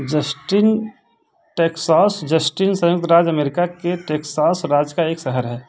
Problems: none marked